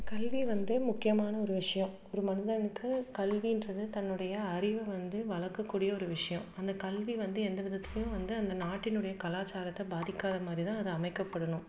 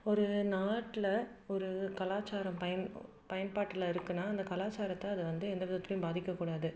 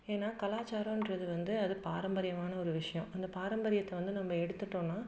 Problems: none marked